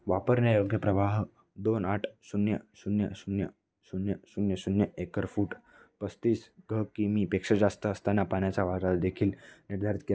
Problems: background sounds at intervals